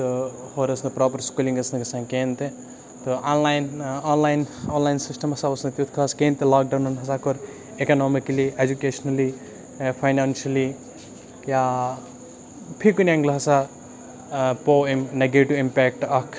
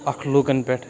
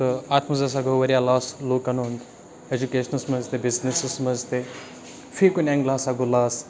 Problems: constant background noise, background conversations at intervals